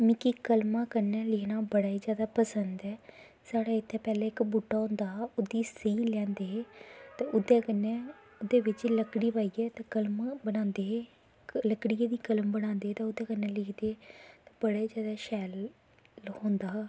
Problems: constant background noise